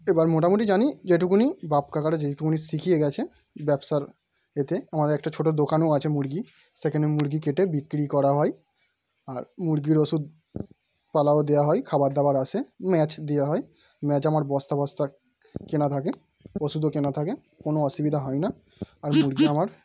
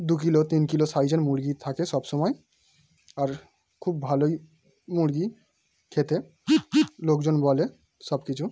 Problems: background sounds at intervals